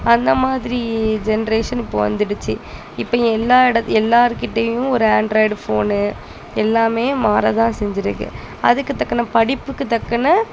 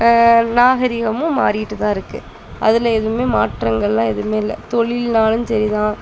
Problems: constant background noise, background conversations at intervals